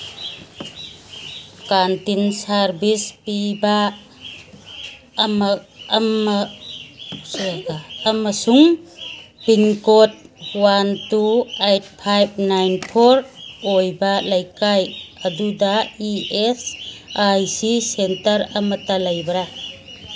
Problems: background sounds at intervals